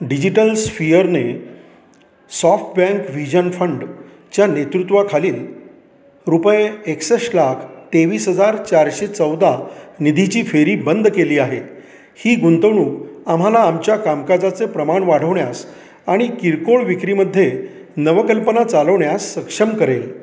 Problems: continuous background conversations, echo